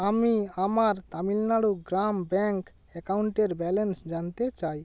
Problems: background sounds at intervals